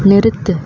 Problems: constant background noise